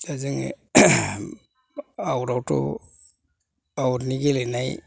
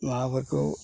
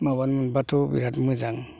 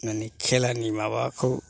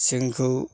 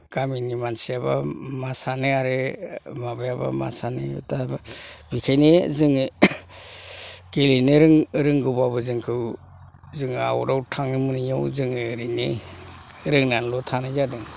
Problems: low volume